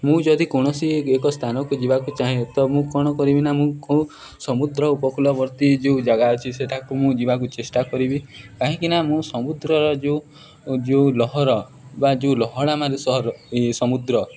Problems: background sounds at intervals